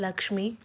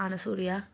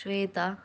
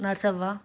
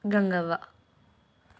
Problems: none marked